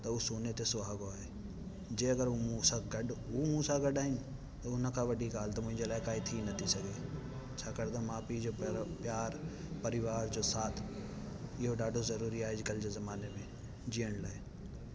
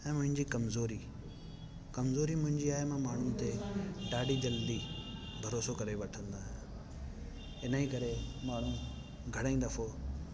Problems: constant background noise